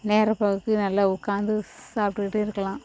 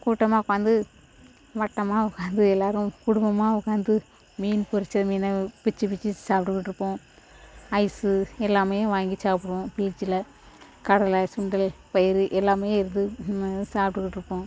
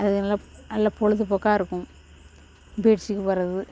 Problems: constant background noise